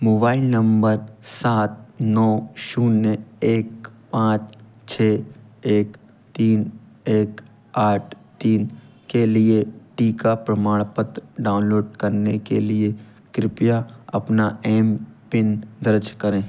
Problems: background sounds at intervals